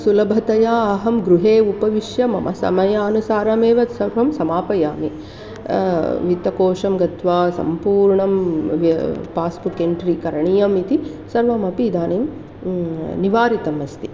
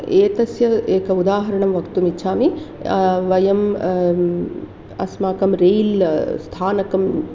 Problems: constant background noise